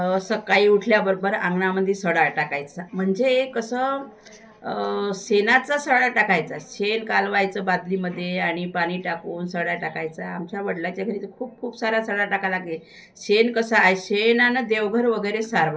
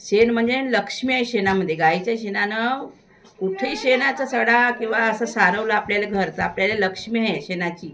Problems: constant background noise